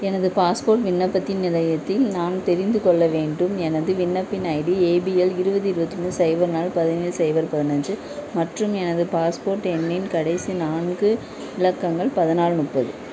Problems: constant background noise